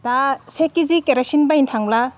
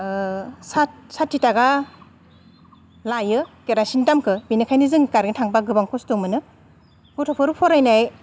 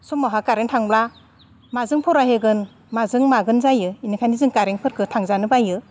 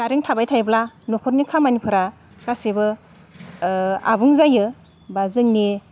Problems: none marked